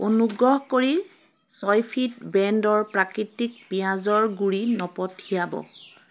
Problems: constant background noise